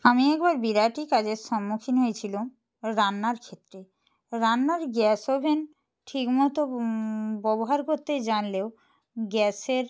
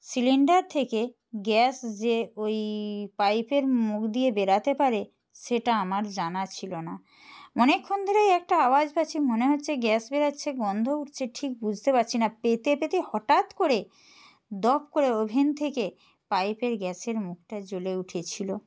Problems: constant background noise